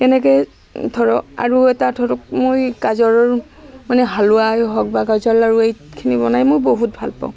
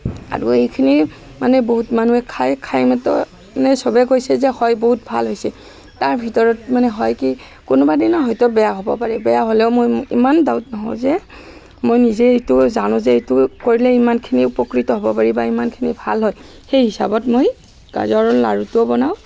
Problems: constant background noise